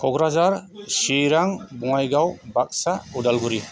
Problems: constant background noise